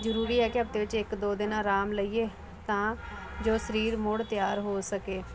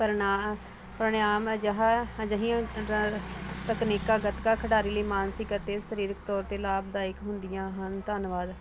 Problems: none marked